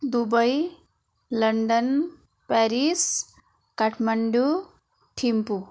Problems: continuous background conversations